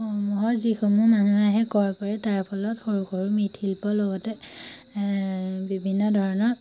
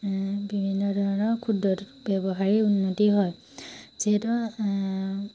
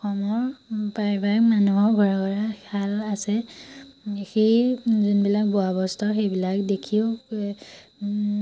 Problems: none marked